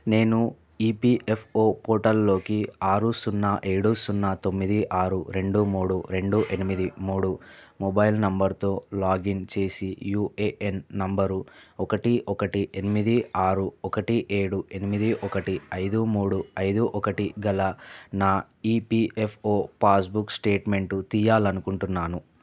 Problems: background sounds at intervals